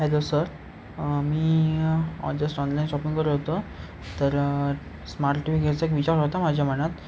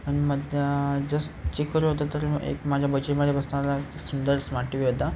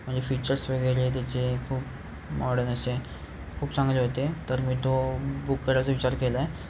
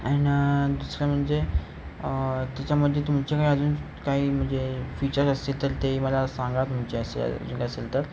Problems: none marked